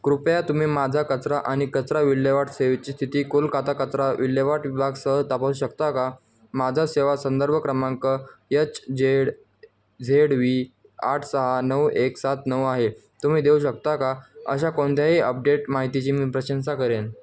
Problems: none marked